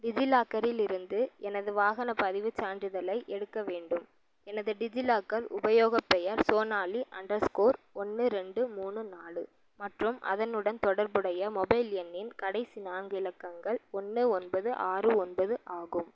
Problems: low volume